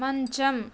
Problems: constant background noise